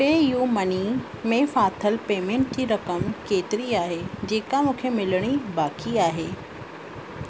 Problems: constant background noise, echo